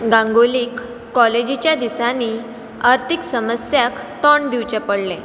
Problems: background sounds at intervals